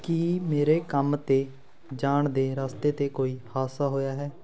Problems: background conversations at intervals